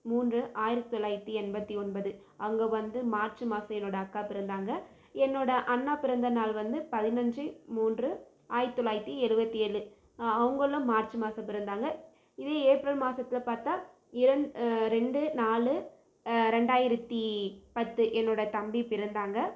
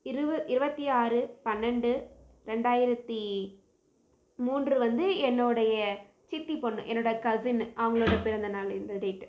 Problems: low volume